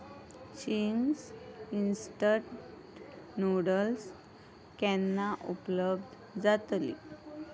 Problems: constant background noise